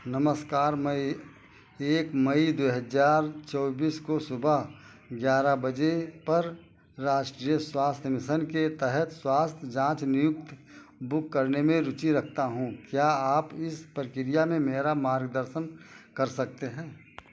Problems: constant background noise